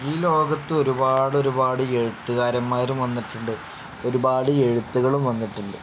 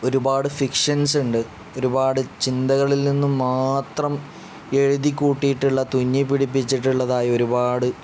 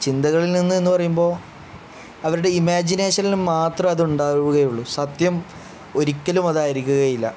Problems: none marked